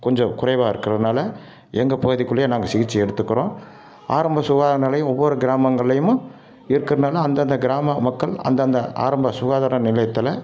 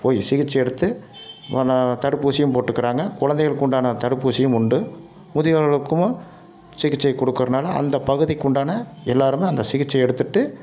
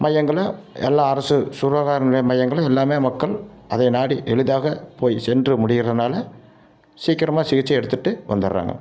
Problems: none marked